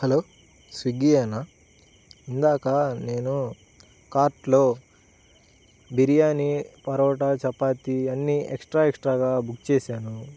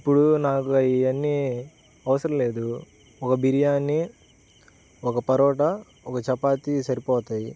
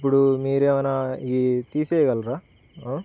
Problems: constant background noise